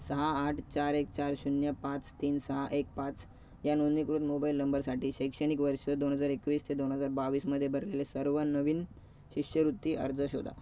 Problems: none marked